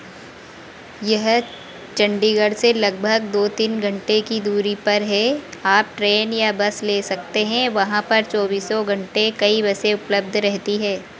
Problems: none marked